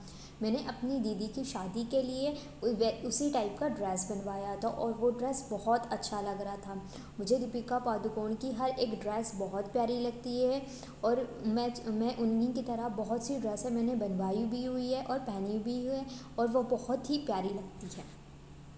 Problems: none marked